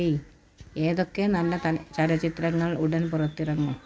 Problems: none marked